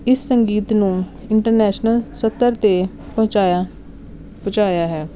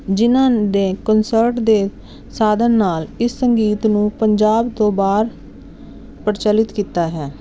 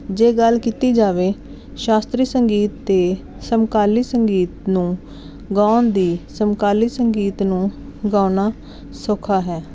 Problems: none marked